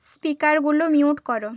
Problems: background sounds at intervals